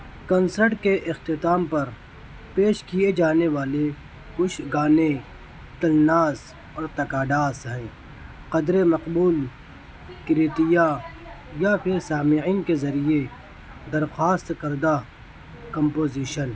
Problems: none marked